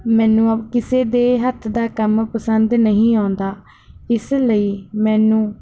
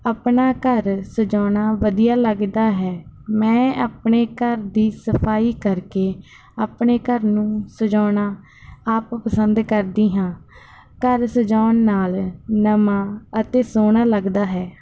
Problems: none marked